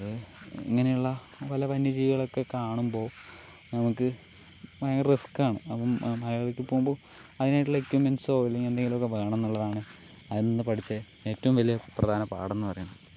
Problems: none marked